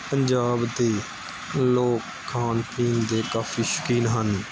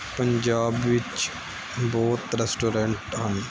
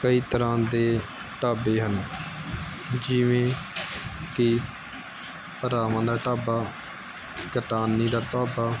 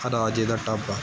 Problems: constant background noise